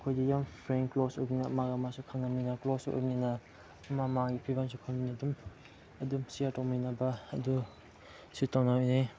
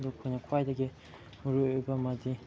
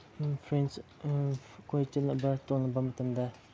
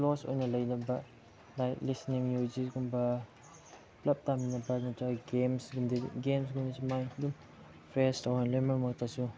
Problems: low volume